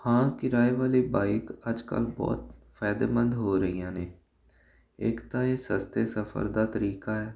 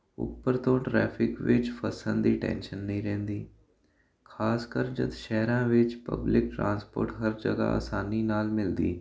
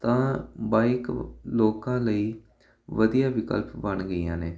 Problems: constant background noise